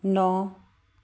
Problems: none marked